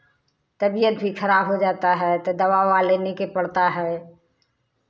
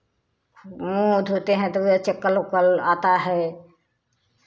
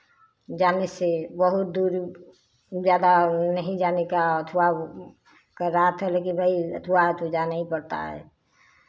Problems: none marked